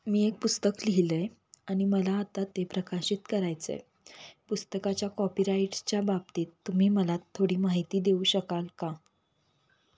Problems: constant background noise